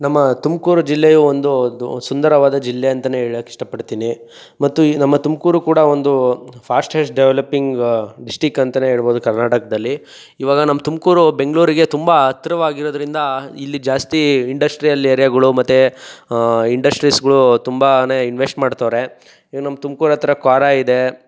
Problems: none marked